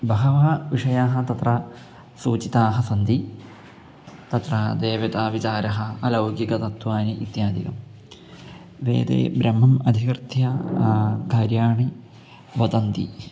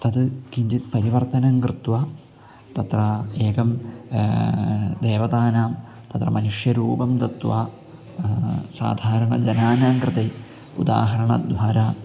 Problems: constant background noise